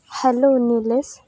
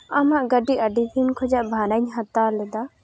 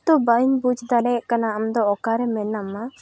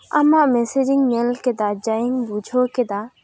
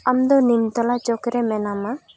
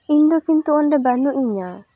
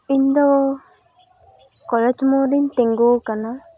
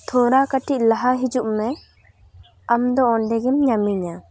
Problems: background sounds at intervals, background conversations at intervals